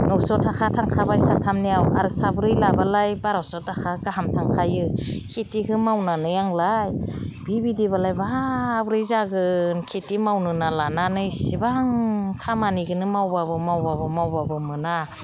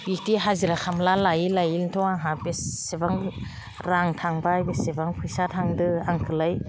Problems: none marked